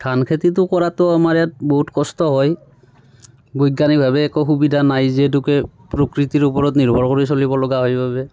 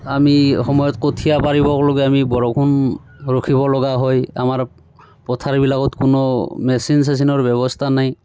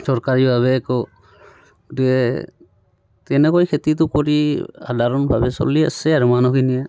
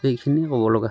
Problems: none marked